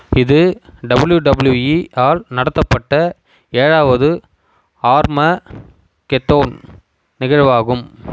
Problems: constant background noise